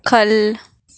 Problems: background sounds at intervals